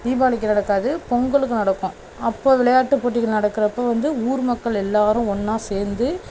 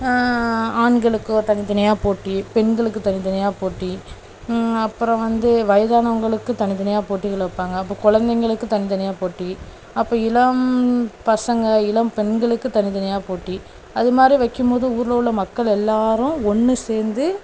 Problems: none marked